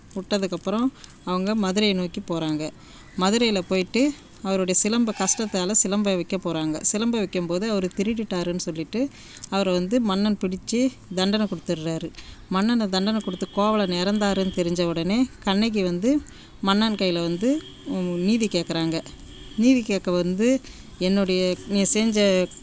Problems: background sounds at intervals